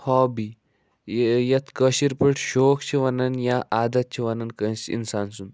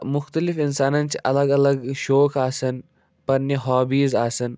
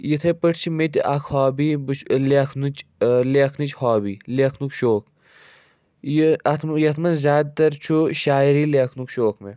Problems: none marked